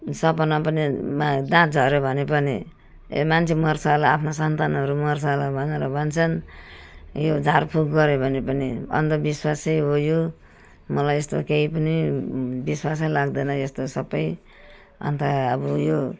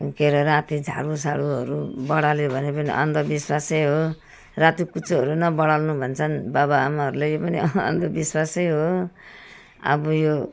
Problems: none marked